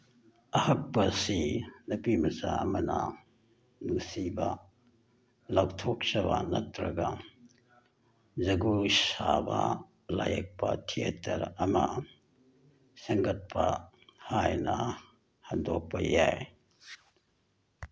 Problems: none marked